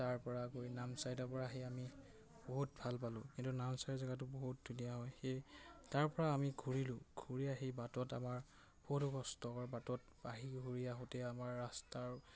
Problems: constant background noise, background conversations at intervals